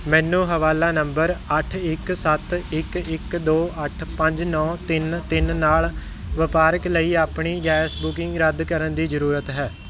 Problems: background sounds at intervals